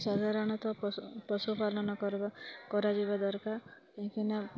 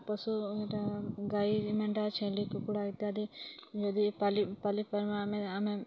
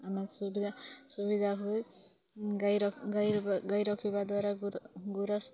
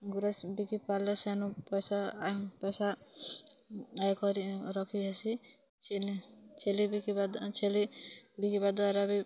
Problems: continuous background conversations